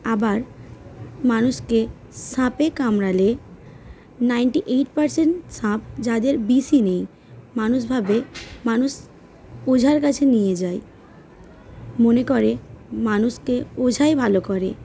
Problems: background sounds at intervals, background conversations at intervals